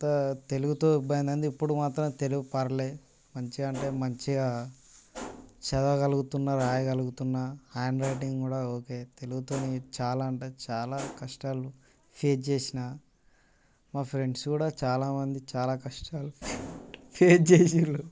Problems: constant background noise